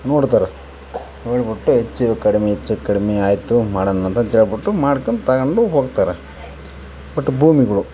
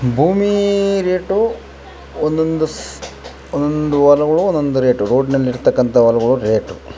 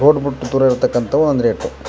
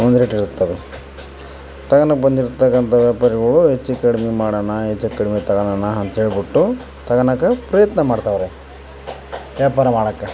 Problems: constant background noise